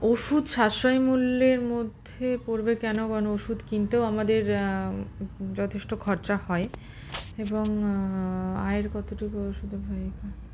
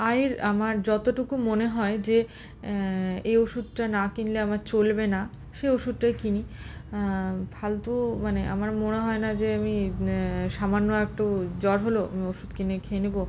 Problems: constant background noise, background conversations at intervals